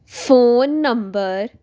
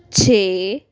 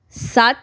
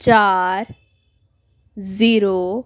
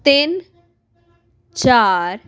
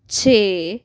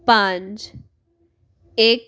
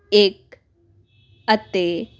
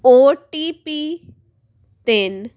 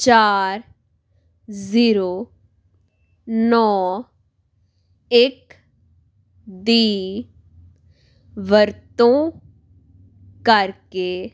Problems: background sounds at intervals